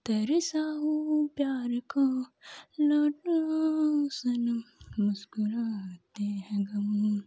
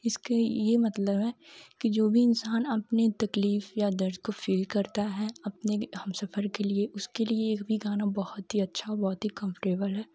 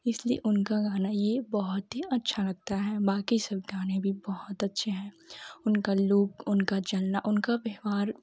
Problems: none marked